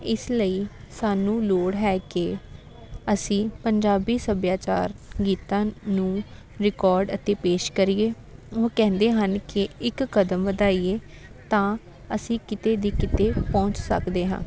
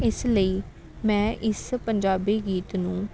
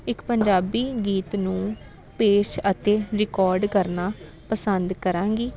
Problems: constant background noise, continuous background conversations